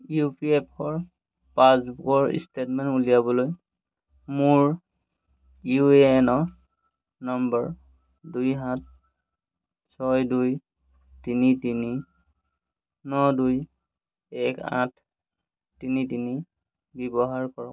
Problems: constant background noise